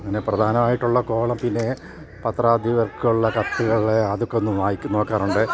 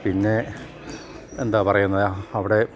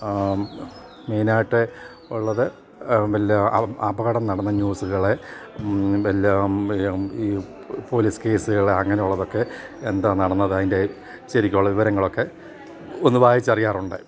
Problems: none marked